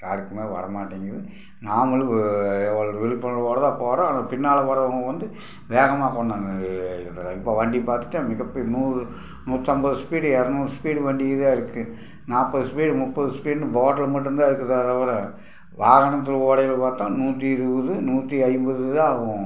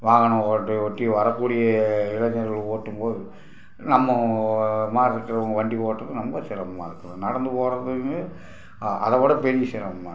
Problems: none marked